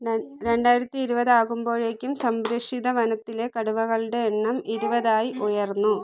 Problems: background sounds at intervals